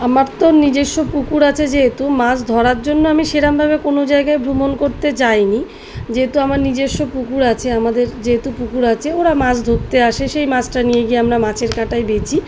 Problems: constant background noise